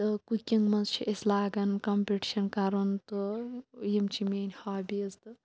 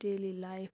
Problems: background sounds at intervals